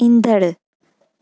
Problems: none marked